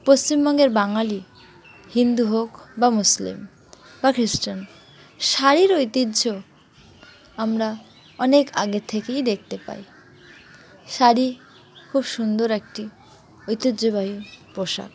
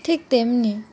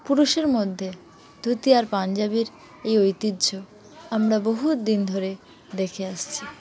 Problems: none marked